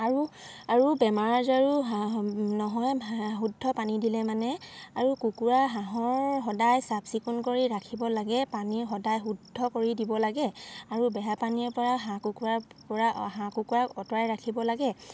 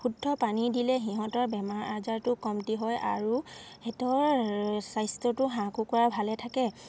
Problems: none marked